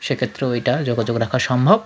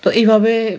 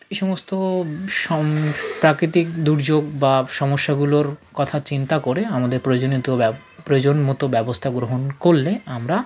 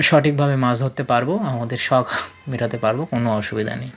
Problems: none marked